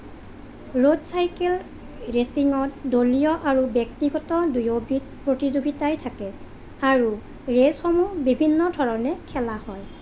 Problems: none marked